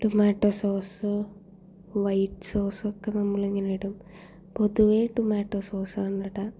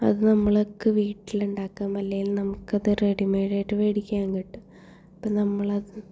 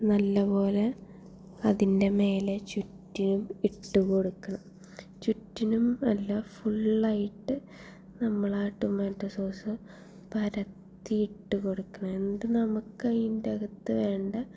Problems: low volume